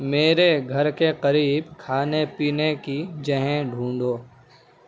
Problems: none marked